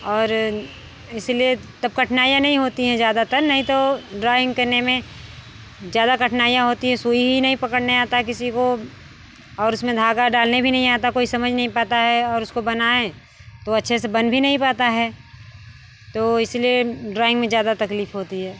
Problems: none marked